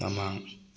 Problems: background sounds at intervals